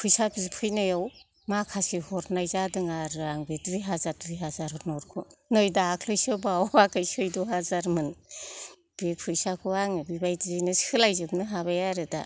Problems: background sounds at intervals